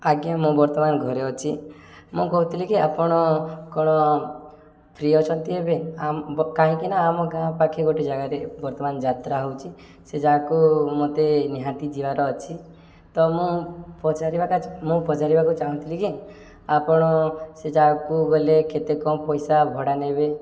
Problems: none marked